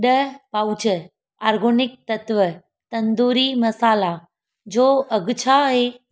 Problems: none marked